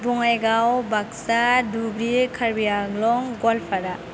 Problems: constant background noise